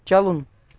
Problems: none marked